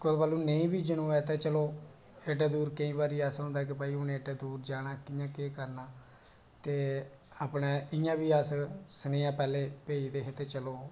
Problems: none marked